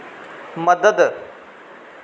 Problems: constant background noise, echo